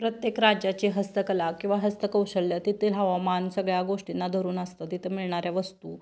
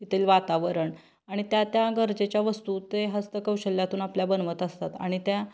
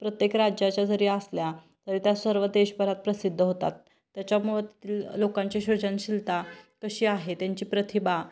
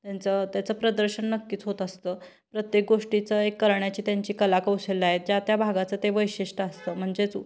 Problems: none marked